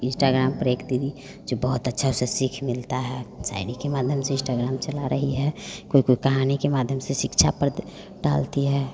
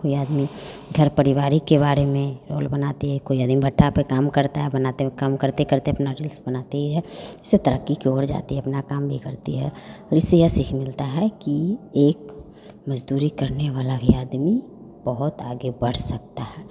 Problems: none marked